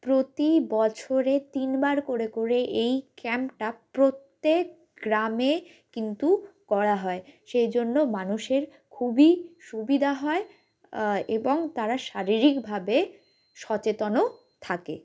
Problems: background sounds at intervals